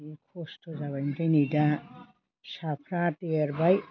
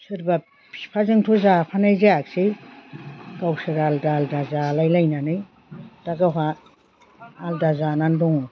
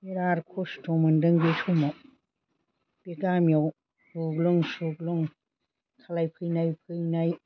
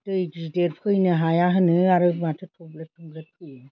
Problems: constant background noise